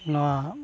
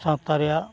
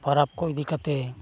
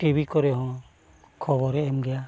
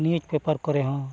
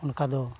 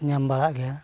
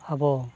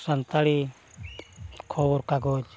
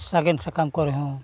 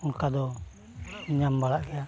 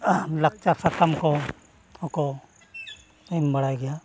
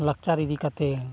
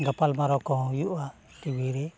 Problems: constant background noise